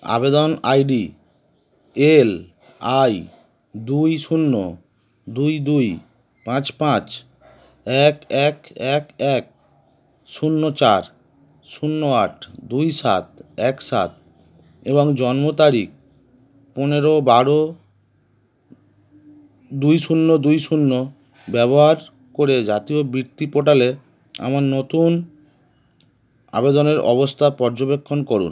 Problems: none marked